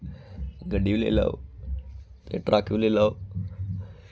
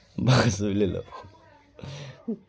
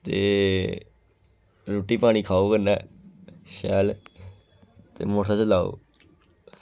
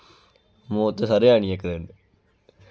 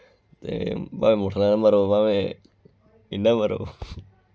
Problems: background sounds at intervals